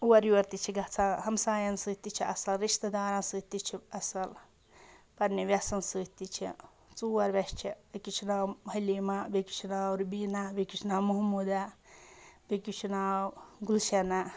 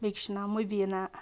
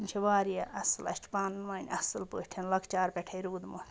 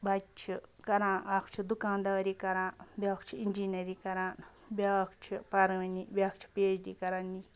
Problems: background sounds at intervals